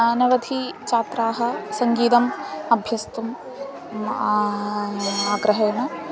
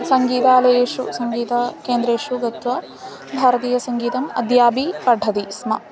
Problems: constant background noise, continuous background conversations